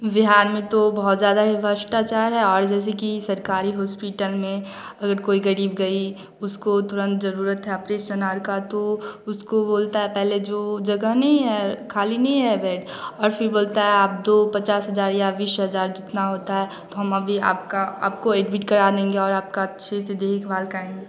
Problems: none marked